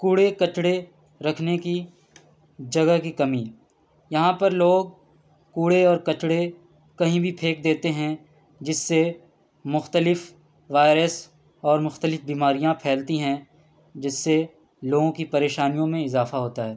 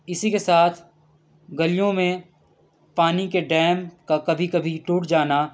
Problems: background sounds at intervals